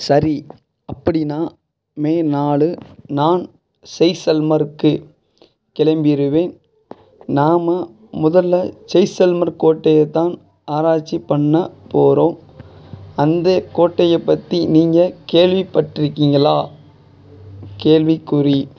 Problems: background sounds at intervals